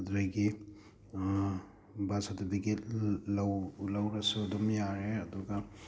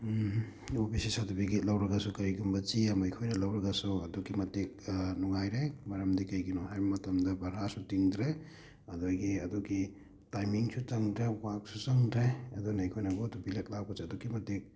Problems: background sounds at intervals